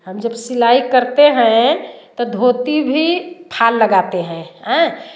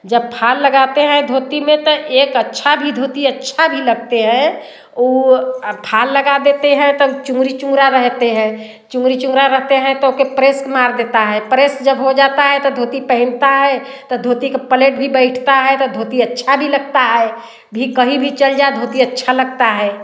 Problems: constant background noise, background conversations at intervals, echo